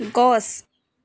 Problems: background sounds at intervals